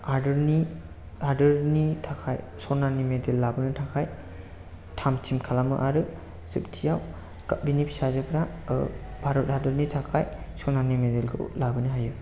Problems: none marked